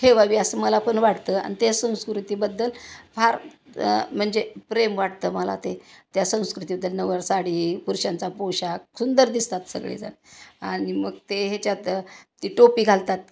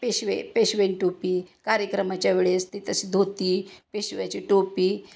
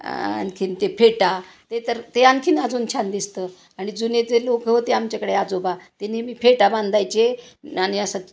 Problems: constant background noise